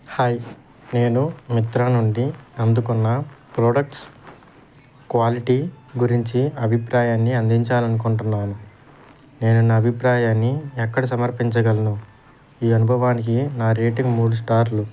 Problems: constant background noise